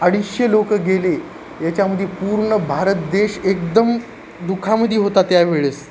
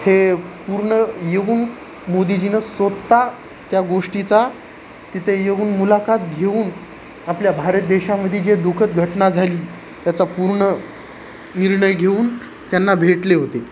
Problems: constant background noise